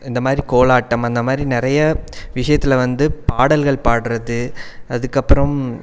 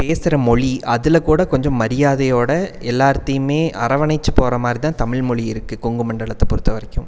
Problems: background sounds at intervals